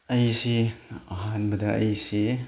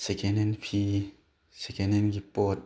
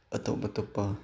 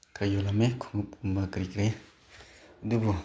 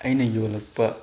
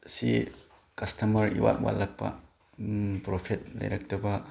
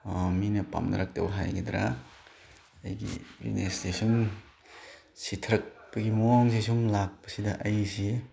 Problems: background sounds at intervals